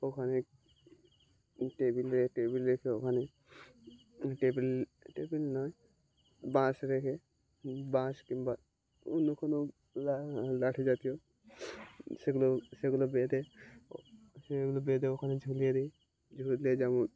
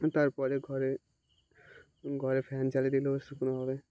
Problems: none marked